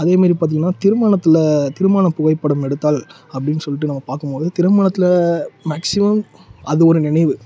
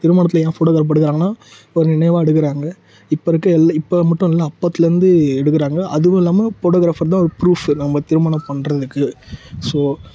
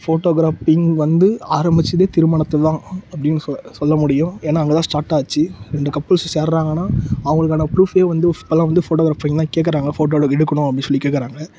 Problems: none marked